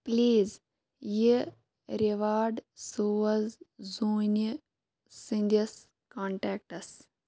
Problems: none marked